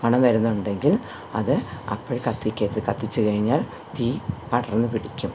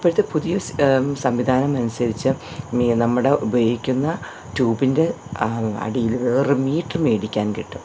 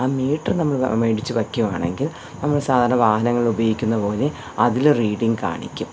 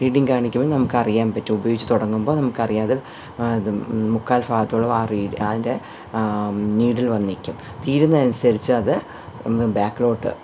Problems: none marked